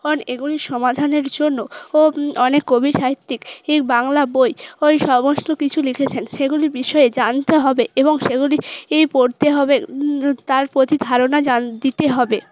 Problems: background sounds at intervals, background conversations at intervals